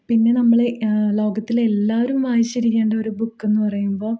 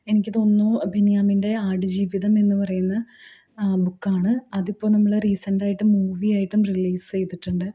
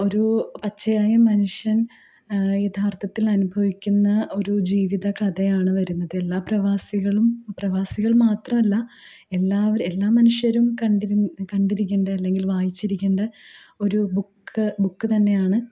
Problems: low volume